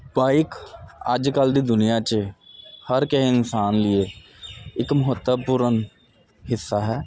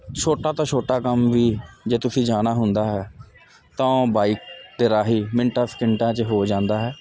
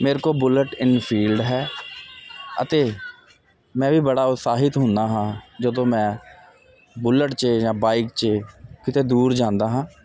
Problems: none marked